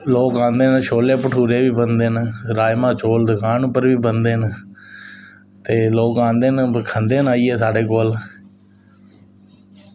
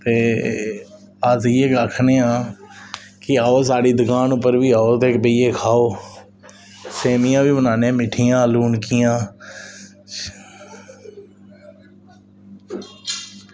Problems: none marked